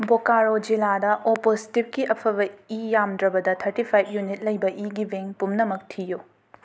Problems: background sounds at intervals